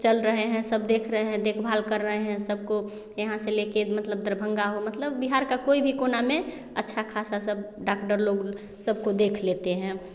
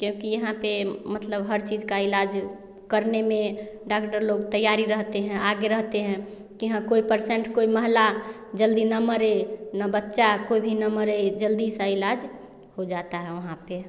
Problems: constant background noise, background conversations at intervals